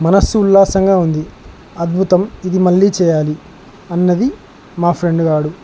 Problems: constant background noise